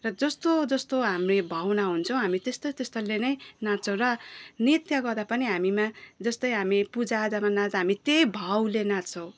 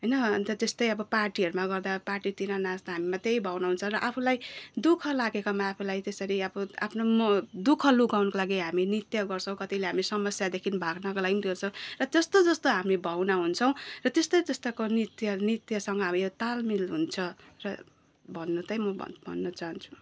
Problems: none marked